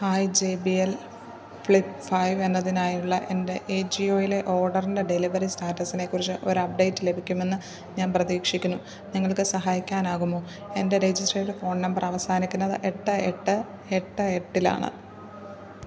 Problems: background sounds at intervals